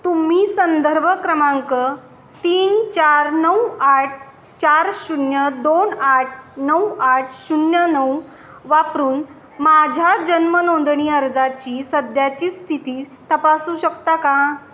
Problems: none marked